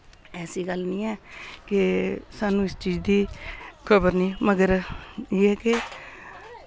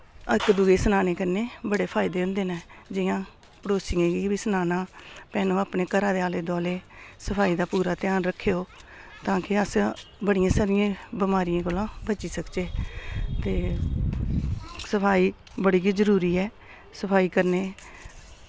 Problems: none marked